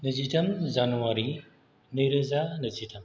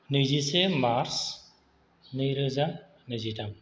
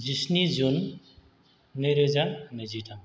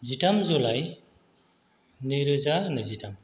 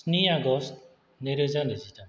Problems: none marked